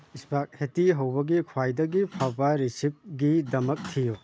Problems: background sounds at intervals